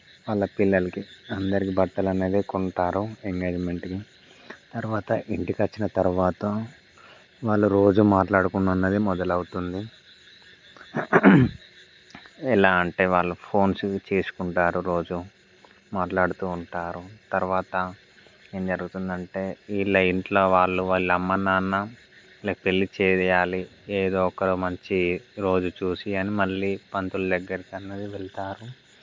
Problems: background sounds at intervals